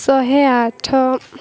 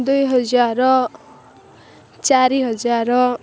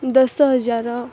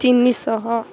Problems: constant background noise